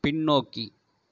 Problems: none marked